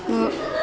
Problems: constant background noise